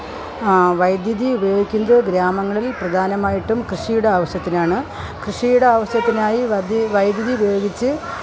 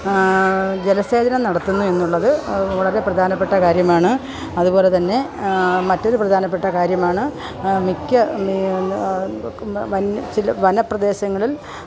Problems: continuous background conversations